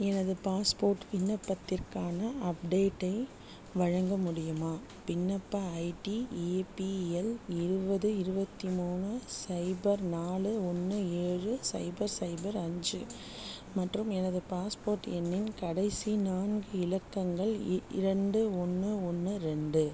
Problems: none marked